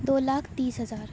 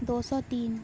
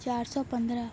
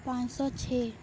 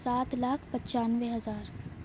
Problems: none marked